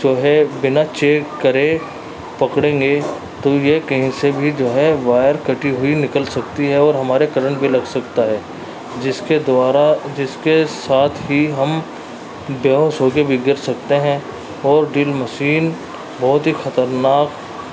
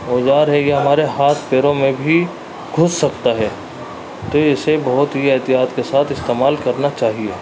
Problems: constant background noise